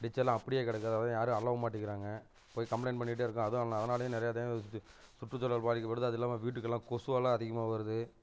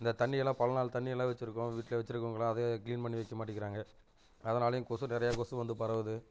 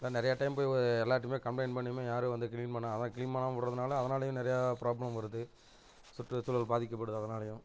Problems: constant background noise